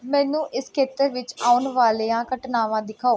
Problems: none marked